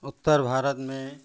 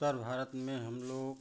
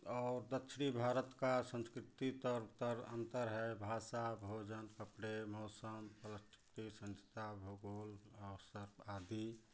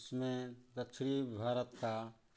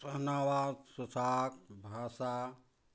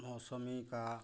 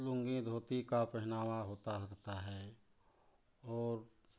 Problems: none marked